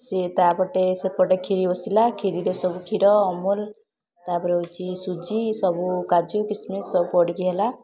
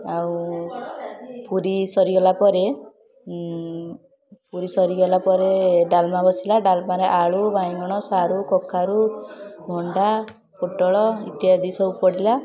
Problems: constant background noise, continuous background conversations